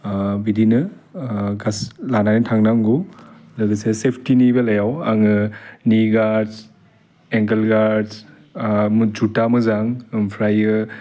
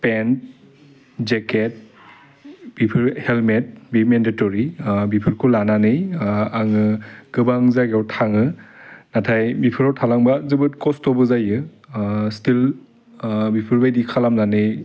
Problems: none marked